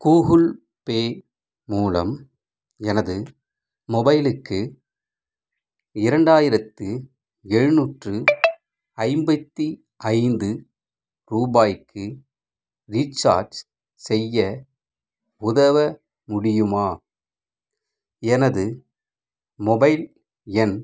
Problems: background sounds at intervals